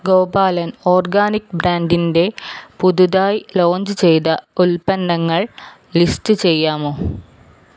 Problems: none marked